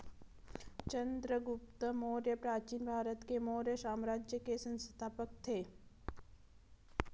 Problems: background sounds at intervals